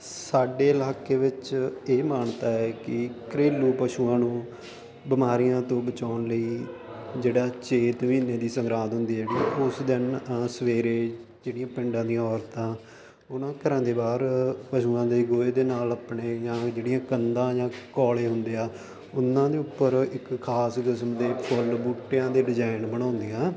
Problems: constant background noise